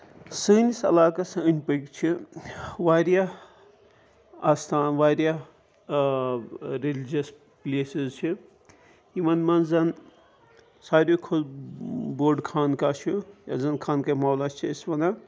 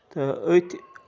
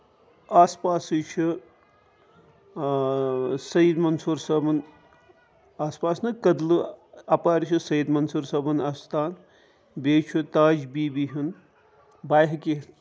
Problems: constant background noise